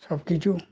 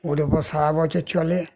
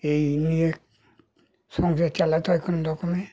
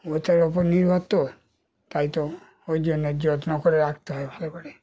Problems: none marked